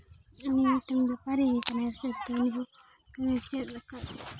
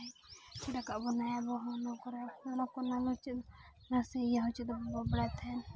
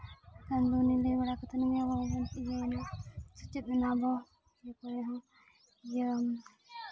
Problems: constant background noise, continuous background conversations